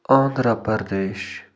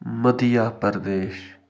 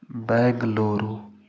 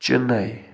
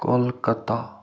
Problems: constant background noise